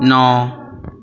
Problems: background conversations at intervals